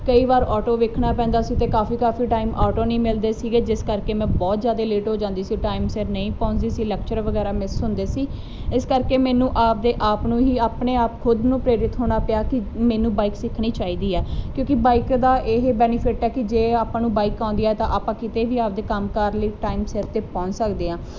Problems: none marked